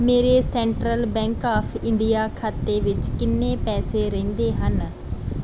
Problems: background sounds at intervals